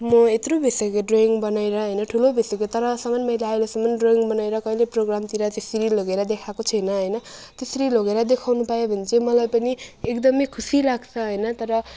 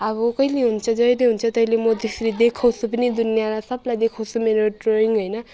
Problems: none marked